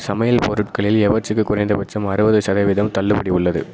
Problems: none marked